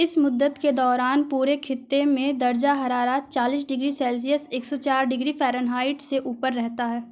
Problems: none marked